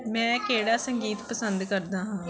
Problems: none marked